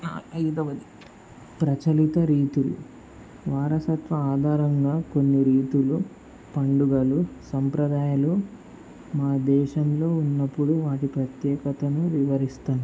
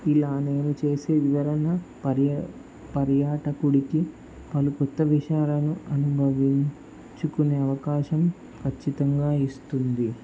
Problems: constant background noise